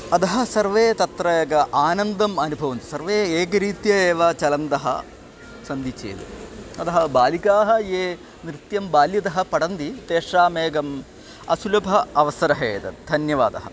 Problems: constant background noise